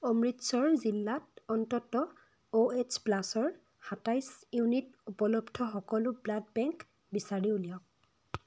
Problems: none marked